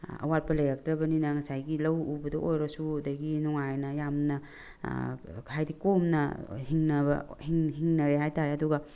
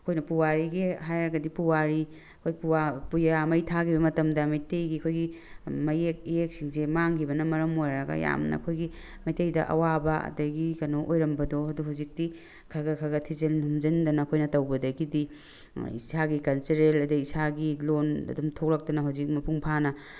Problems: none marked